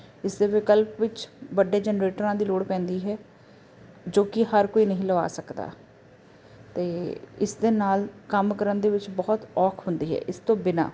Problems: constant background noise